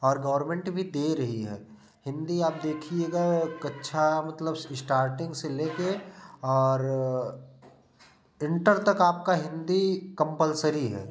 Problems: none marked